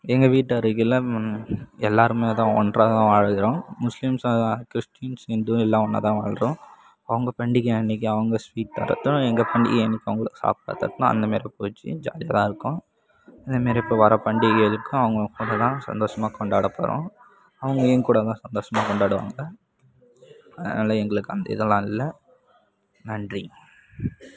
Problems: none marked